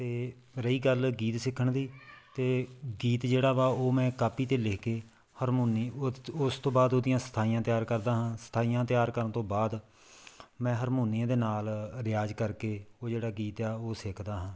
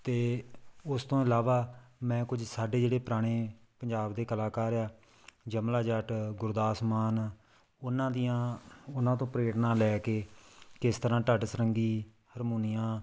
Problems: background conversations at intervals